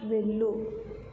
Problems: low volume